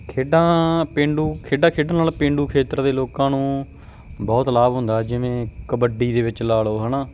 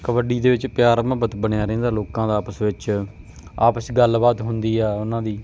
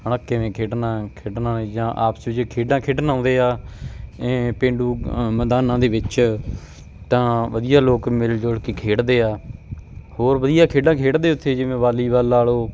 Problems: background sounds at intervals